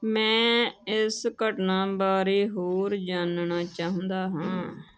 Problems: none marked